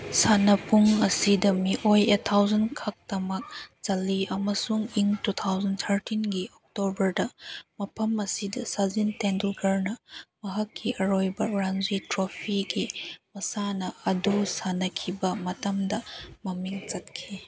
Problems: background sounds at intervals